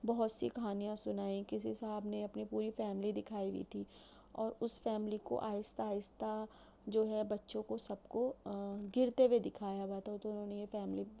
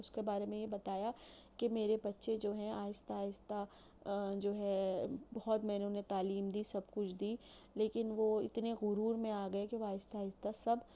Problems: constant background noise